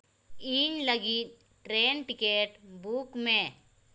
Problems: background sounds at intervals